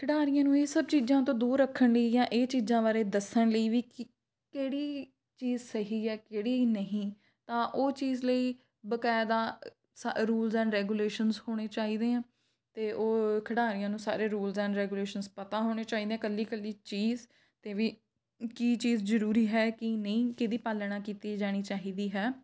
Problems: background sounds at intervals